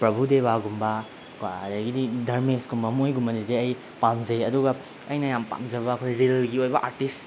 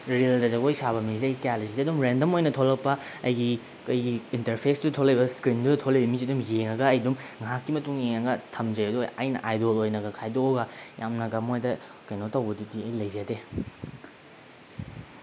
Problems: background sounds at intervals